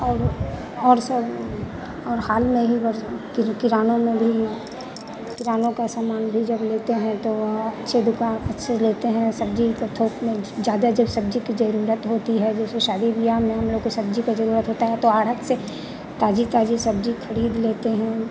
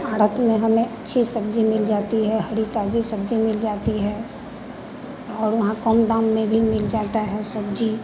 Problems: none marked